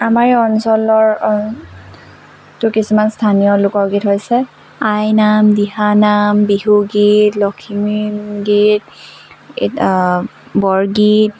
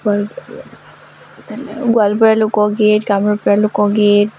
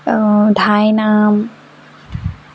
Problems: none marked